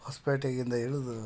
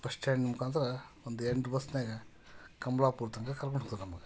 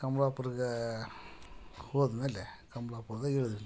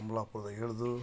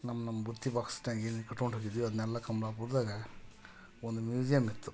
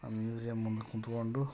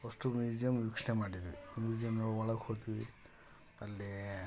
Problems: background conversations at intervals